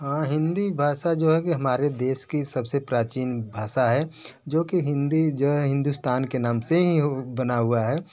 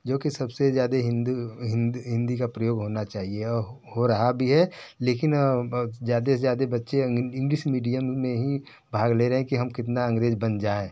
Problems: none marked